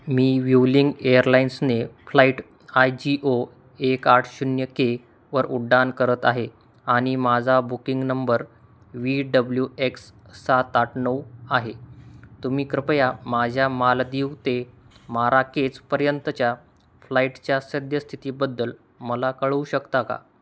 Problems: background sounds at intervals